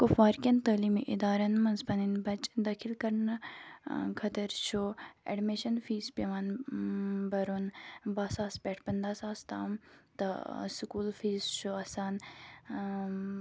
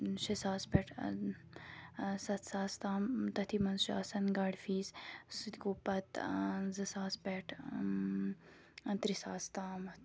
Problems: background sounds at intervals